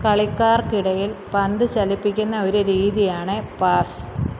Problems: constant background noise